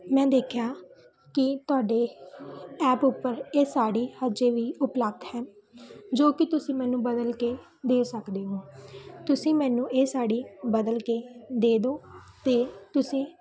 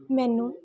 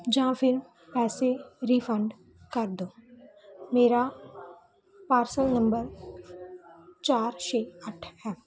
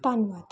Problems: background conversations at intervals